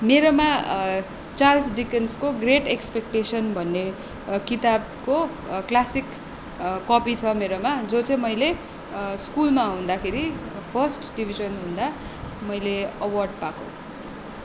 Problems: constant background noise